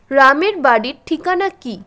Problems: constant background noise